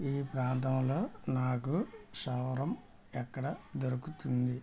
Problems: low volume